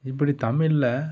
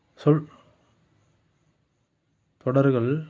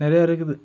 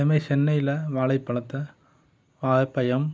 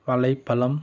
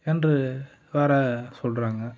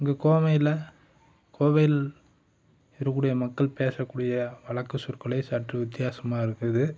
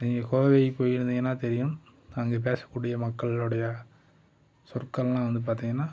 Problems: none marked